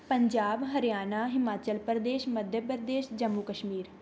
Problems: none marked